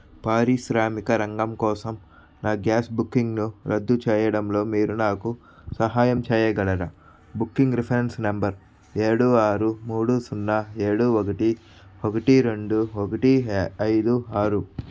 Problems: background sounds at intervals